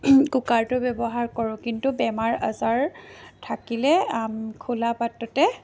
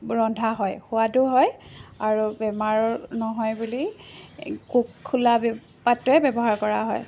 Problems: constant background noise